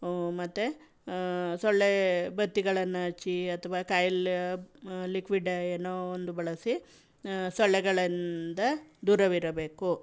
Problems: background sounds at intervals